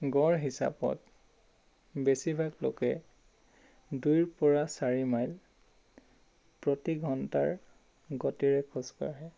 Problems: none marked